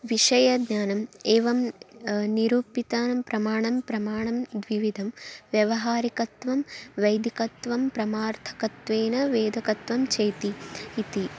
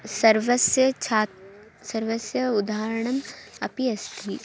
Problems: constant background noise